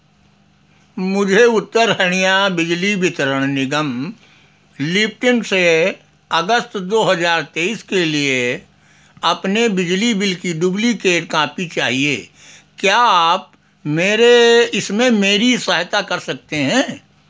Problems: none marked